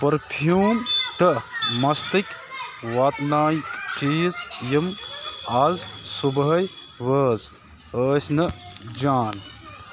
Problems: constant background noise